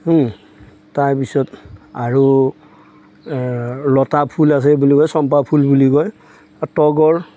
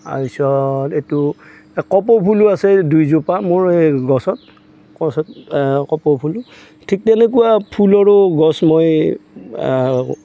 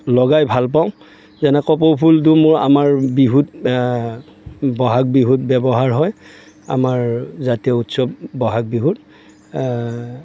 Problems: background sounds at intervals